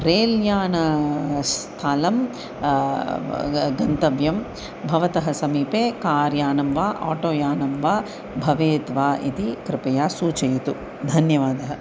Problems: constant background noise